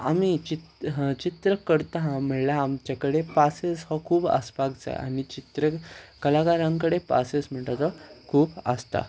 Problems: background conversations at intervals